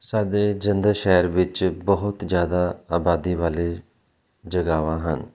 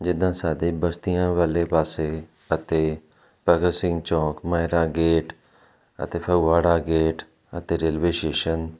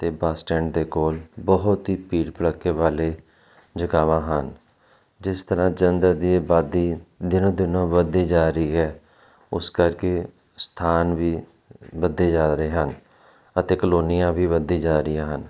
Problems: none marked